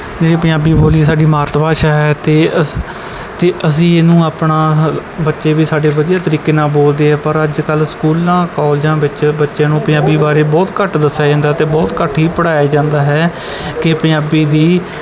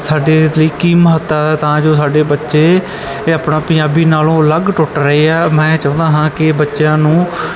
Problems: constant background noise